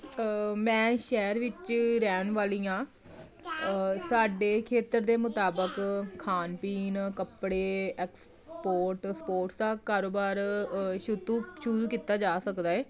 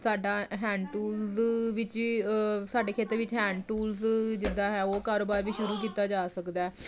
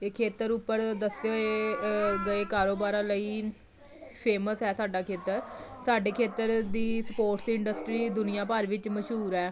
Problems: none marked